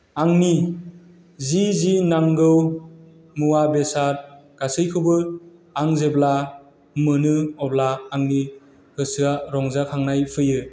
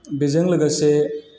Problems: constant background noise